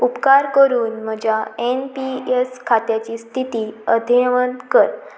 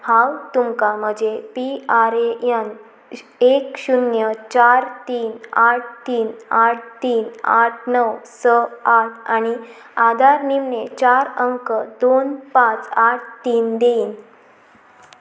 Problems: constant background noise